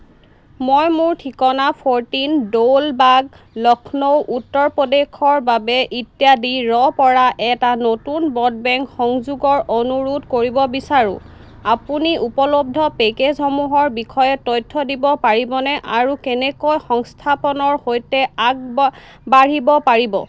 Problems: none marked